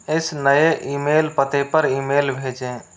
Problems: constant background noise